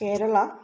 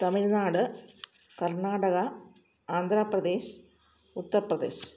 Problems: low volume